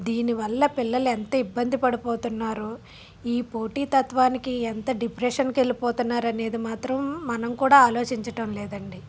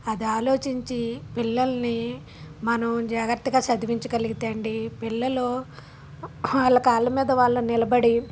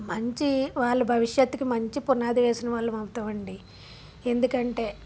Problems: background sounds at intervals